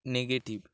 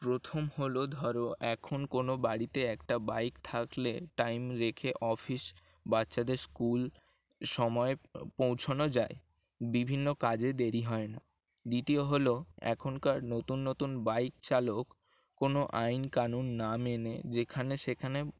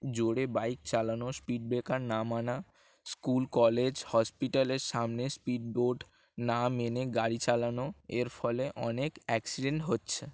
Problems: constant background noise